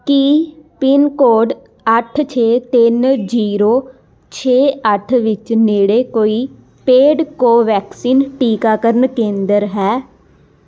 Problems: constant background noise